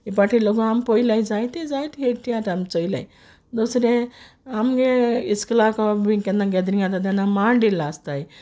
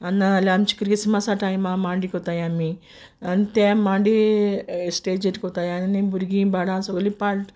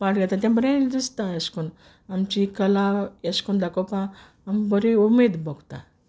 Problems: constant background noise